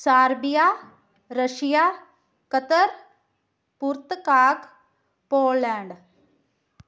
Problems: background sounds at intervals